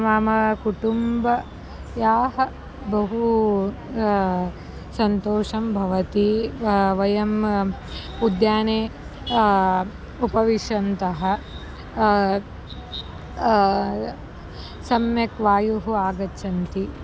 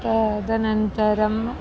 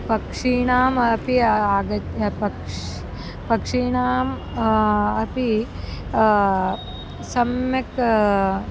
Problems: background sounds at intervals